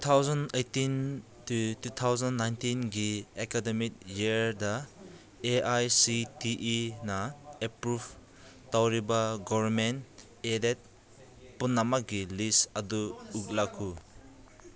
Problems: background conversations at intervals